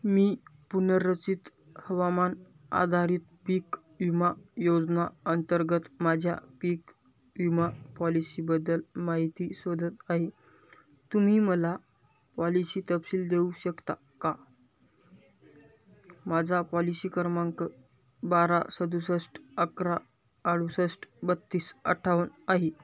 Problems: none marked